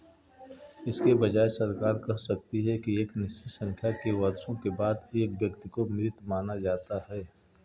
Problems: background sounds at intervals